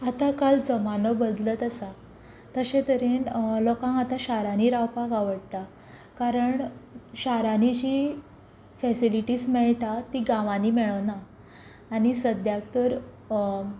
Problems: background sounds at intervals